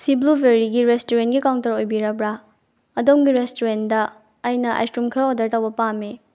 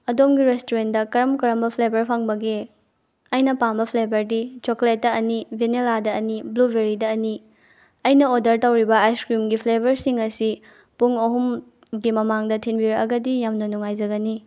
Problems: none marked